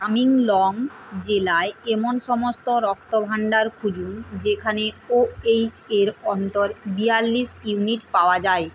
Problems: constant background noise